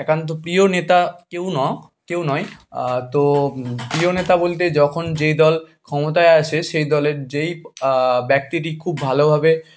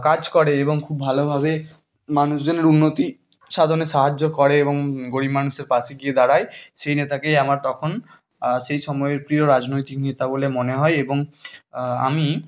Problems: constant background noise, background conversations at intervals